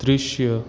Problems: constant background noise, background conversations at intervals